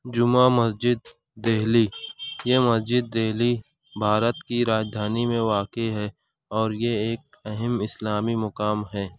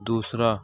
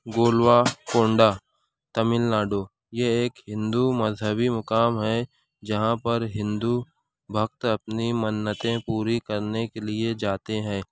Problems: background sounds at intervals